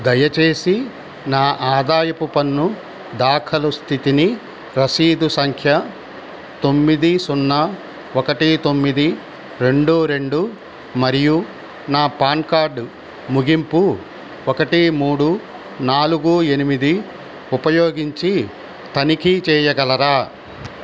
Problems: constant background noise